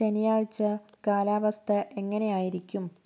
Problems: none marked